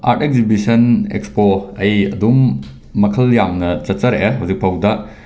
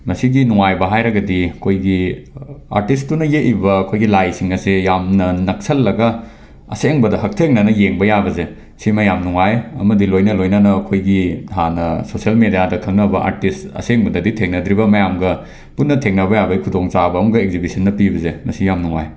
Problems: none marked